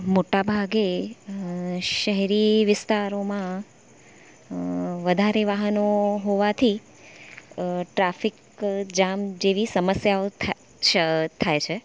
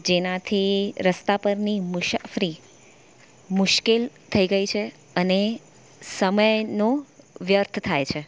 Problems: none marked